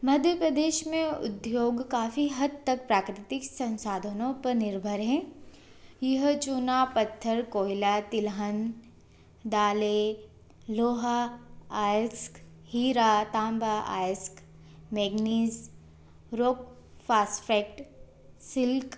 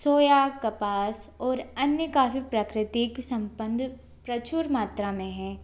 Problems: constant background noise